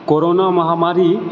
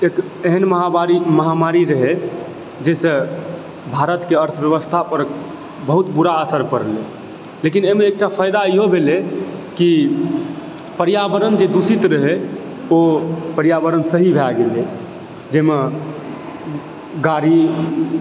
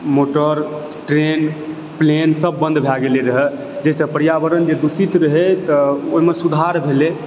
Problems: constant background noise